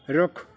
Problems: background sounds at intervals